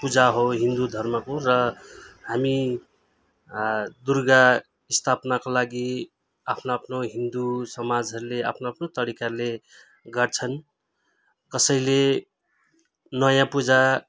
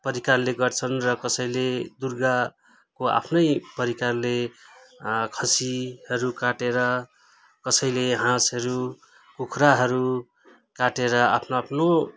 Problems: none marked